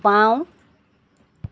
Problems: constant background noise